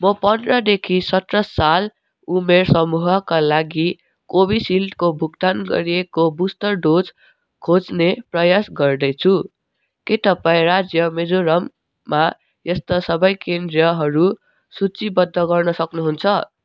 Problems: none marked